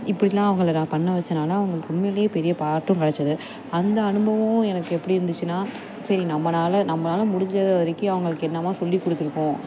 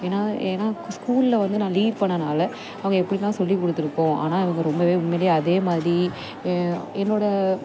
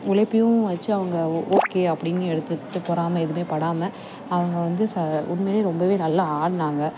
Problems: constant background noise